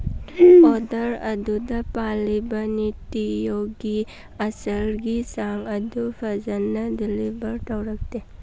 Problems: background sounds at intervals